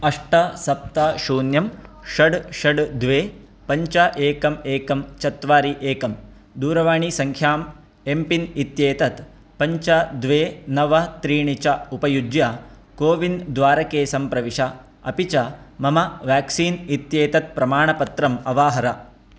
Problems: constant background noise